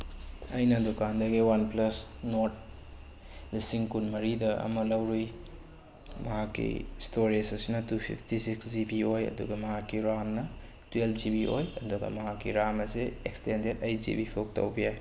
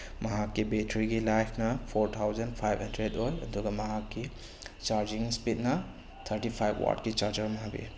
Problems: none marked